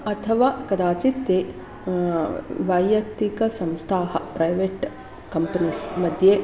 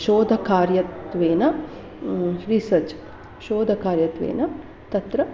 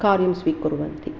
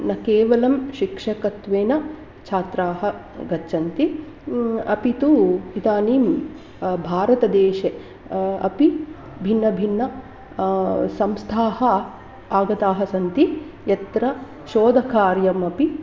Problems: background sounds at intervals